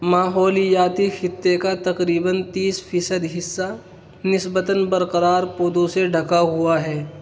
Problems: constant background noise